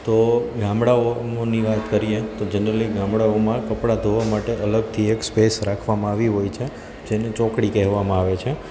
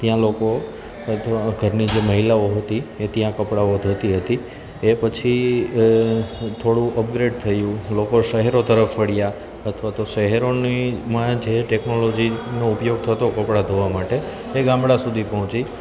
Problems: constant background noise